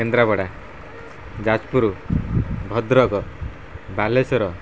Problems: constant background noise